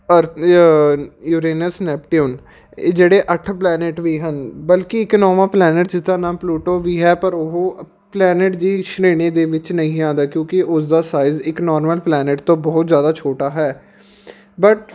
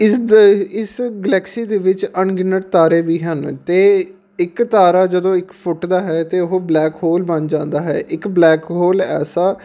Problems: background sounds at intervals